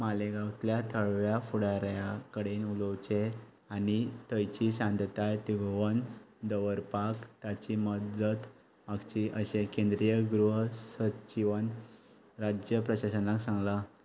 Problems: background sounds at intervals